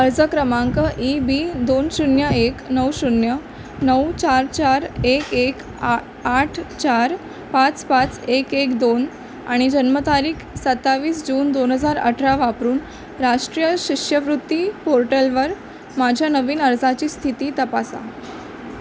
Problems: constant background noise